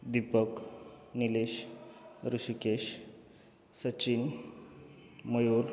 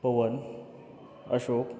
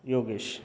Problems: none marked